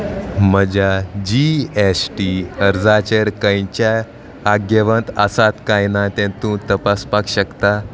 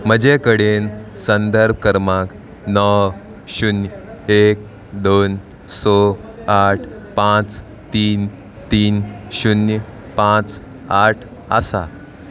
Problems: constant background noise